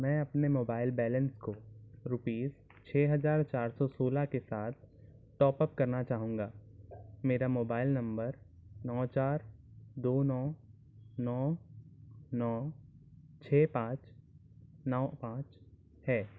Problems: constant background noise